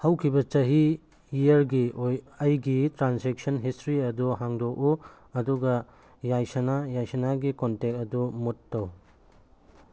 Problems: none marked